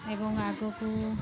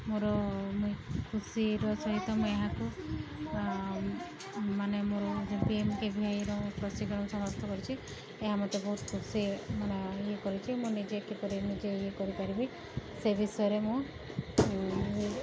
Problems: background sounds at intervals, background conversations at intervals